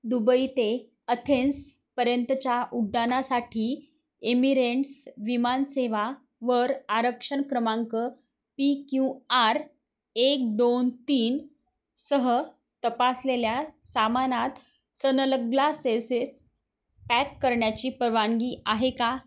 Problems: background sounds at intervals